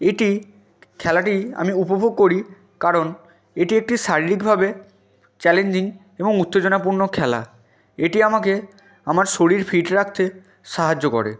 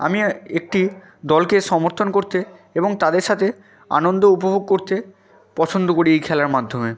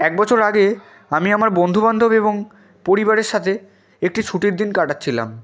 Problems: none marked